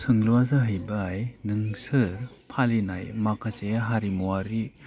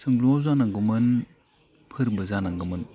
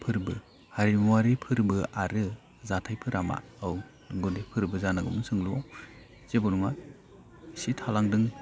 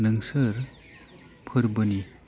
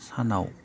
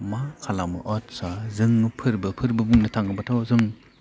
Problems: low volume